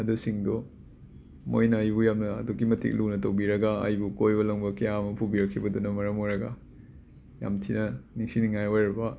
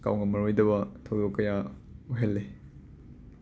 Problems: background sounds at intervals